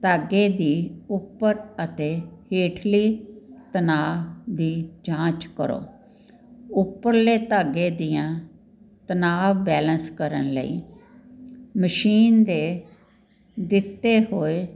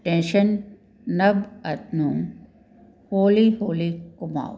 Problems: none marked